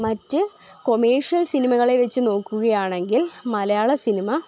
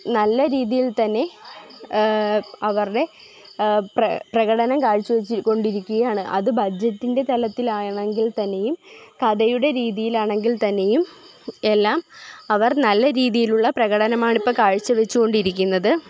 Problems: constant background noise